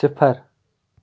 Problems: none marked